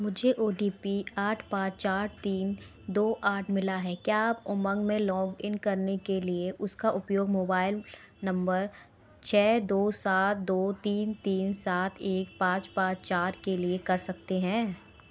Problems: constant background noise